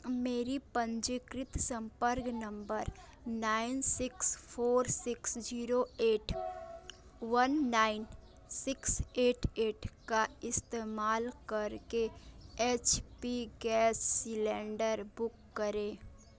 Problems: constant background noise, continuous background conversations